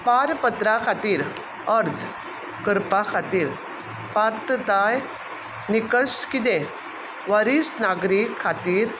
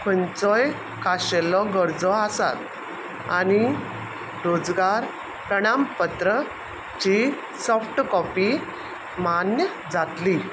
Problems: none marked